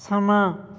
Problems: none marked